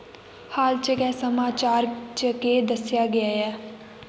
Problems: background sounds at intervals, echo